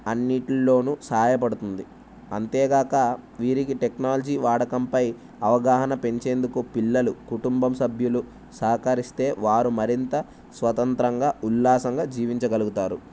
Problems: none marked